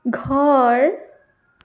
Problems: none marked